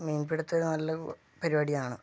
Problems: low volume